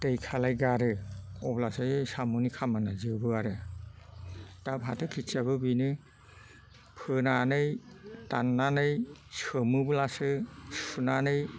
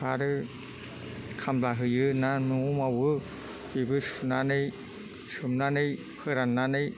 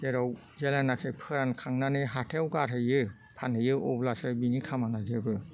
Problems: low volume